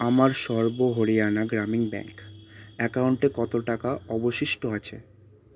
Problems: constant background noise